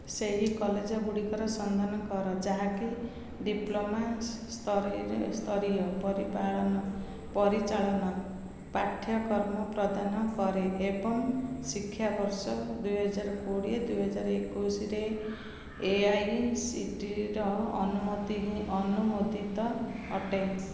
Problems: none marked